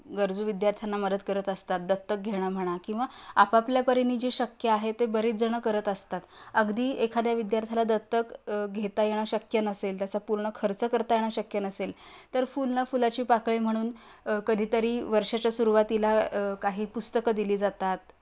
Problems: constant background noise